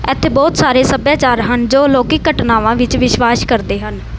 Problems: none marked